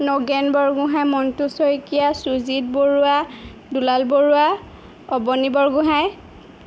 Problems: none marked